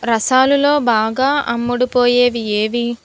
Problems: background sounds at intervals